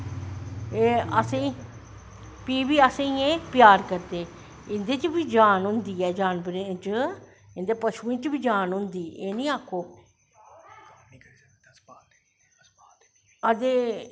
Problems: none marked